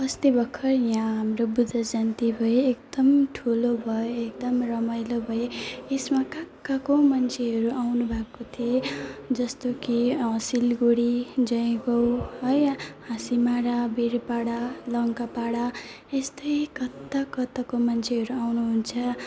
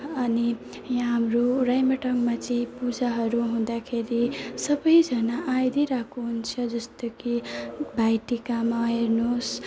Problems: constant background noise, low volume